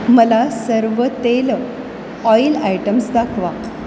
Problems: constant background noise